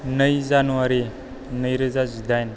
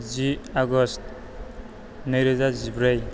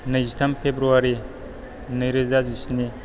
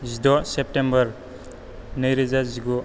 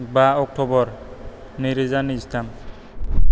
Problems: low volume